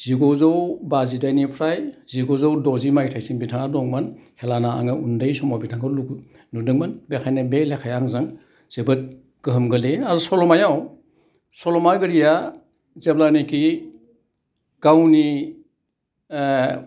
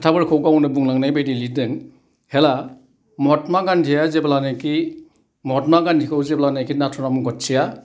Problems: none marked